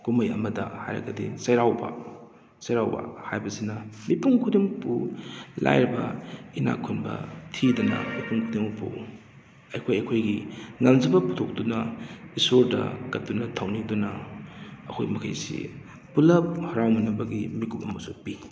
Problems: background sounds at intervals